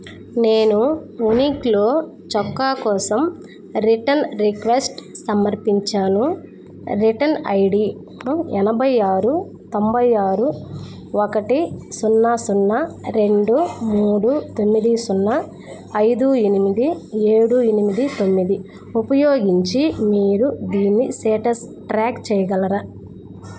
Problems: background sounds at intervals